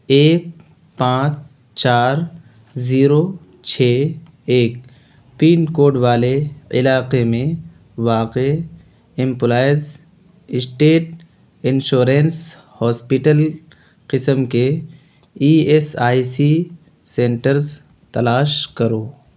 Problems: constant background noise